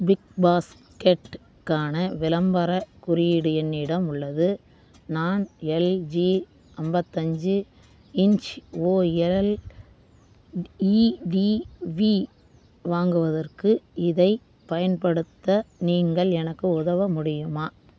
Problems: constant background noise